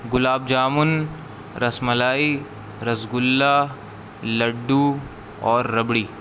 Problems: constant background noise